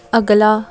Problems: background sounds at intervals, background conversations at intervals